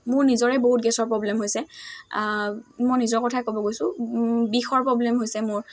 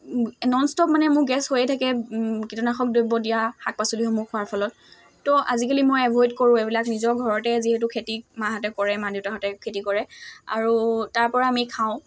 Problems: constant background noise